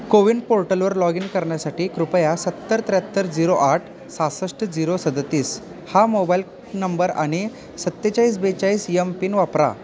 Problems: constant background noise, background conversations at intervals